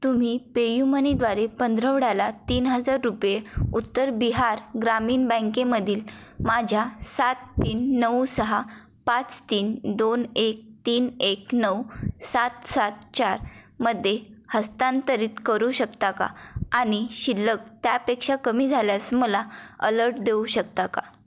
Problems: none marked